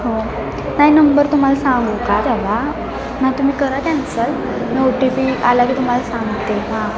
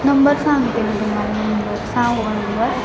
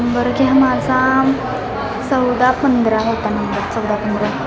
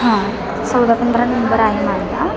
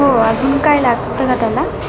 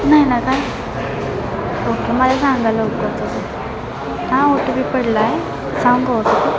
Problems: constant background noise, continuous background conversations